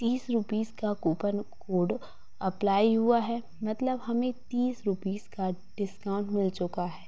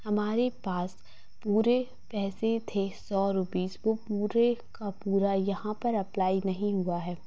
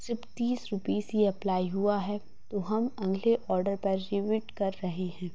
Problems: constant background noise, low volume